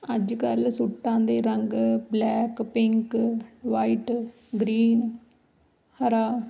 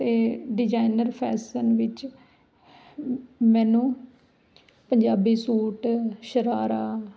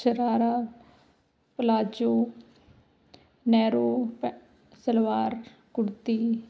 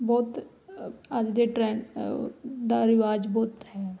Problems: background sounds at intervals